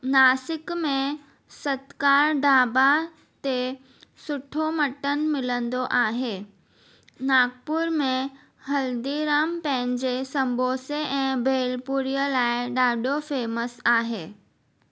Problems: none marked